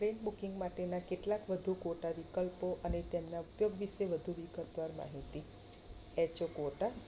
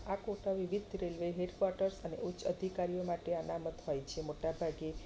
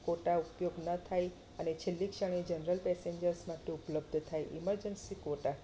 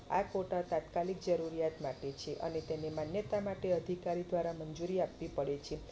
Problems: constant background noise